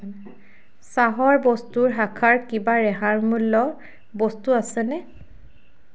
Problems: none marked